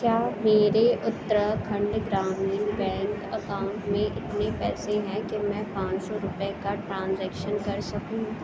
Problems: constant background noise